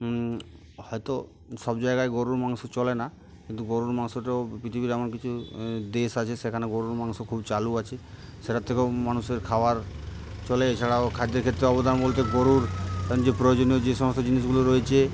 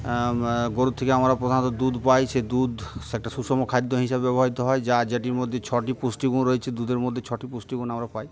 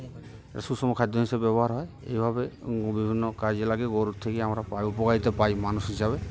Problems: constant background noise